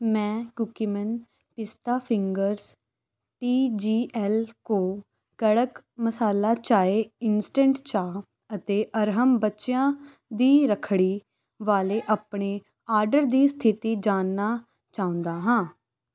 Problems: background conversations at intervals